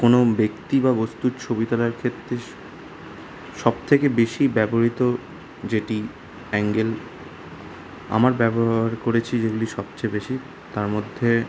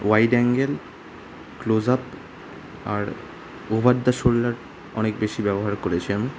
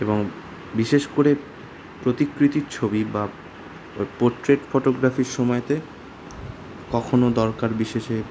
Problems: constant background noise